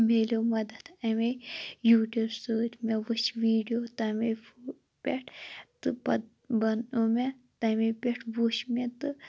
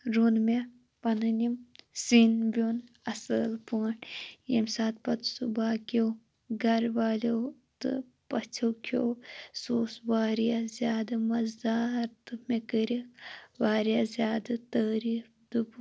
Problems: none marked